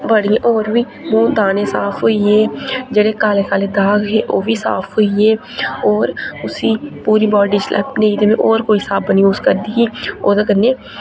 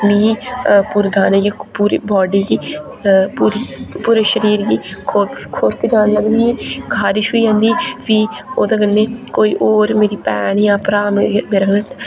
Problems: constant background noise